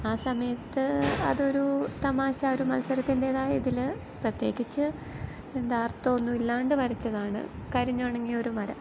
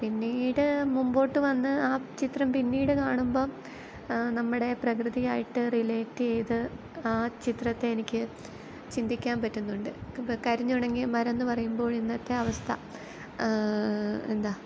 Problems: background sounds at intervals